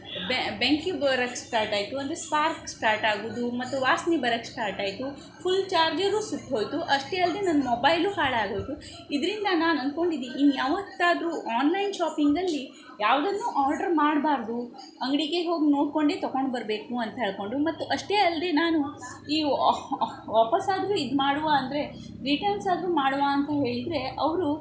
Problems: background sounds at intervals